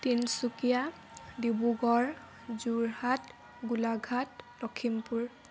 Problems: constant background noise